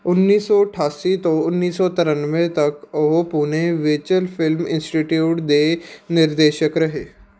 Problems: background sounds at intervals